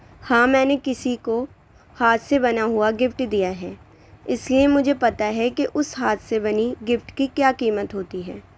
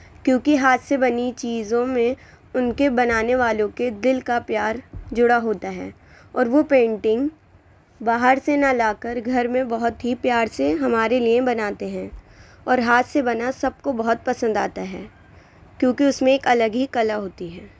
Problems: constant background noise